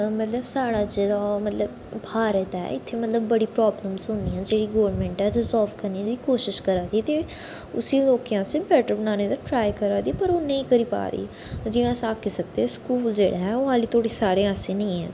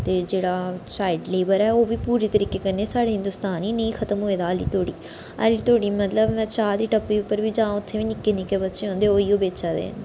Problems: echo